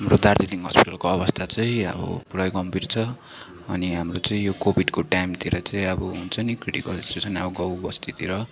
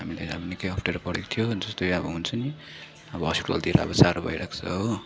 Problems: background sounds at intervals, continuous background conversations